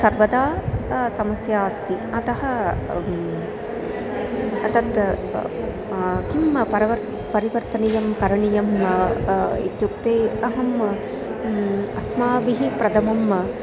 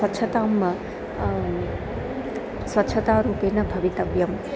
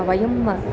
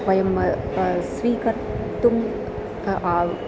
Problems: continuous background conversations